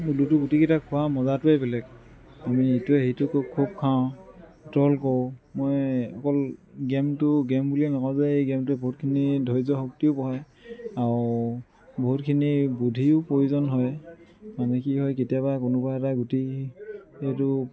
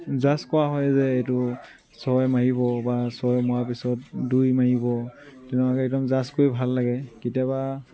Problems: constant background noise, background conversations at intervals